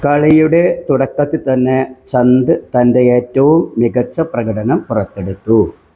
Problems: background sounds at intervals